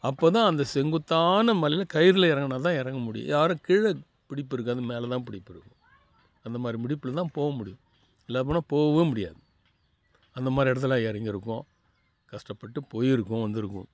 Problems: background conversations at intervals